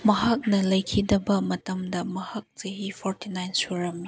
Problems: none marked